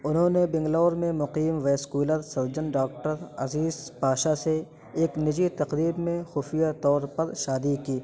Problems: constant background noise